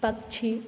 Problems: none marked